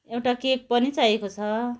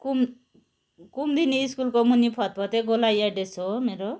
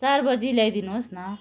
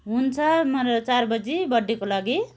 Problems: background sounds at intervals, continuous background conversations